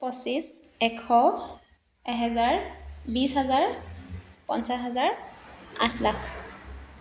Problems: none marked